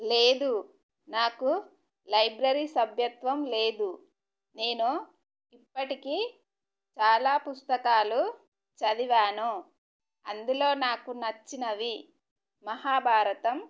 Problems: none marked